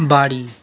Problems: continuous background conversations